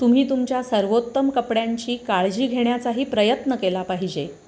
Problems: none marked